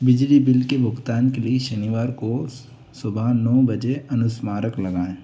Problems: none marked